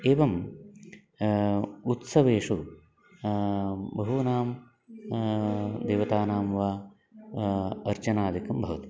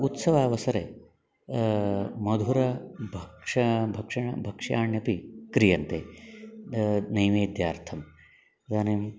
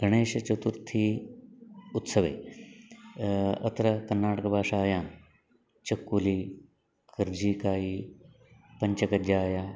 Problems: background conversations at intervals